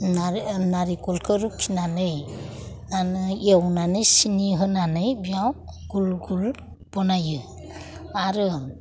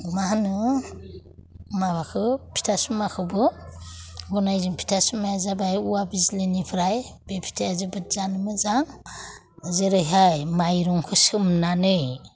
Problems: none marked